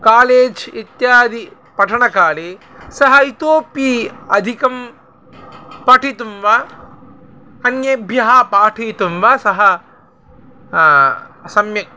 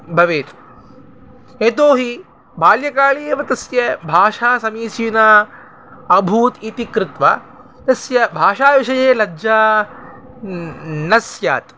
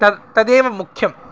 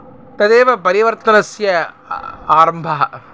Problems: none marked